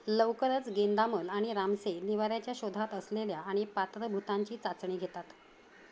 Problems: none marked